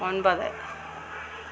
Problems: constant background noise